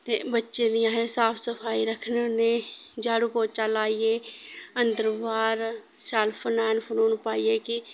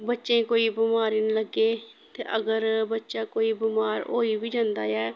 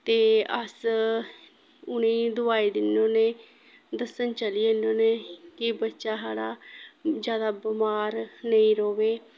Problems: background sounds at intervals